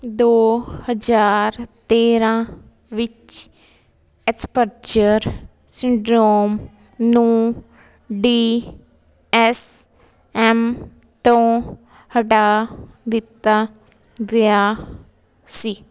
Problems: continuous background conversations